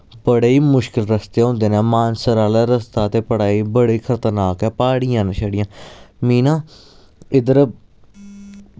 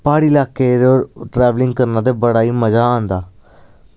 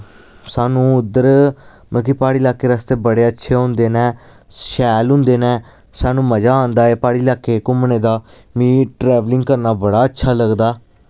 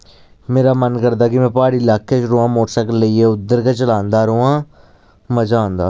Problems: none marked